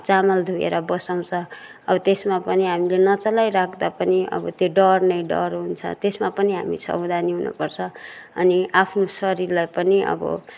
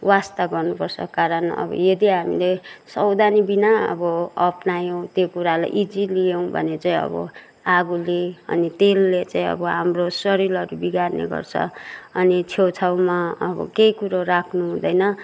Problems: background sounds at intervals